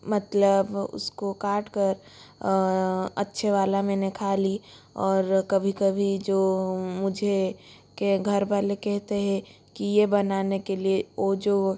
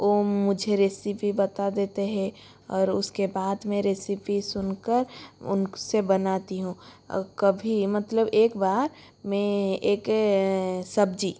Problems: constant background noise